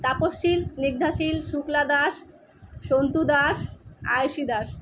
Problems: none marked